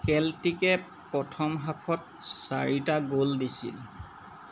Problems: none marked